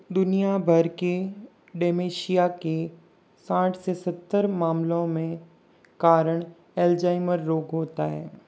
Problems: constant background noise